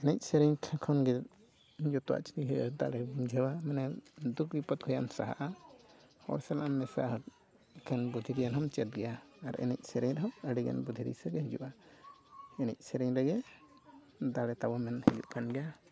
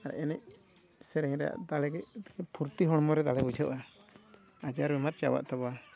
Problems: constant background noise, low volume